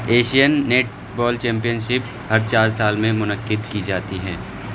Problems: constant background noise